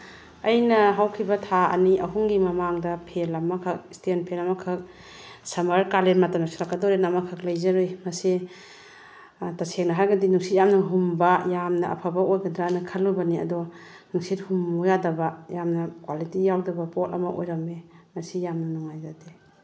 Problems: none marked